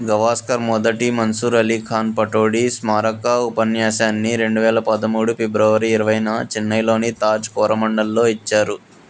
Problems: none marked